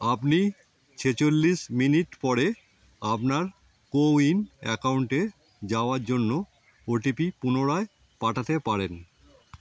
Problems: none marked